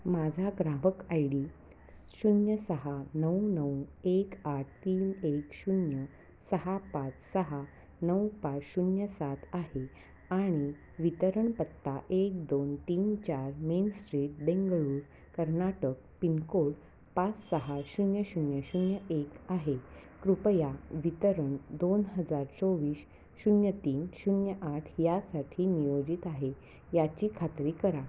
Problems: constant background noise